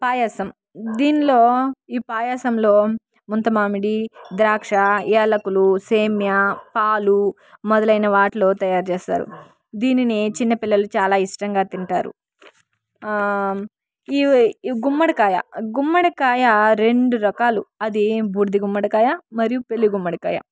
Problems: background sounds at intervals